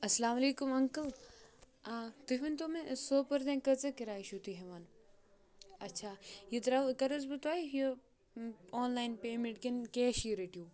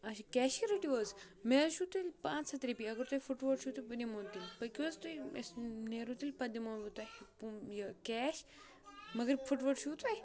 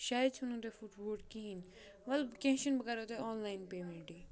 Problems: background sounds at intervals